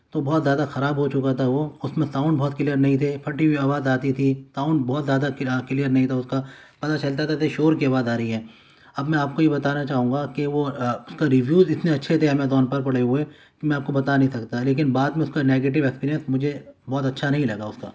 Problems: none marked